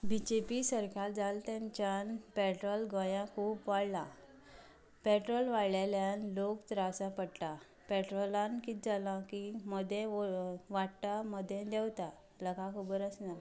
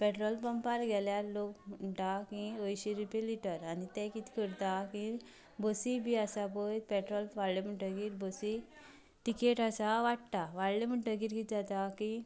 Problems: background sounds at intervals